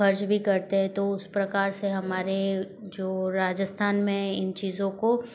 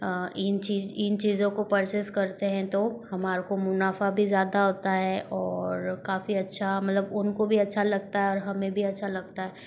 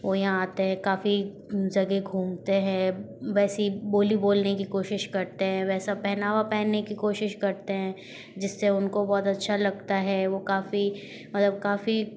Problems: background sounds at intervals